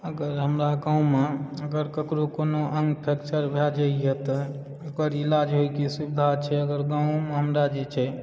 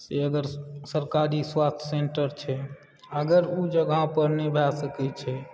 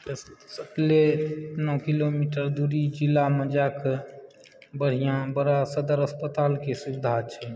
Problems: background conversations at intervals